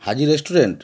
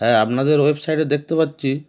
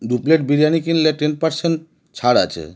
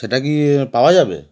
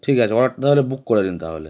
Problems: none marked